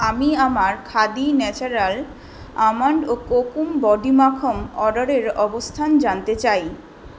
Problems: none marked